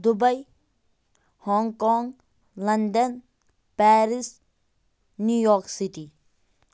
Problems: none marked